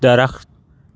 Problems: none marked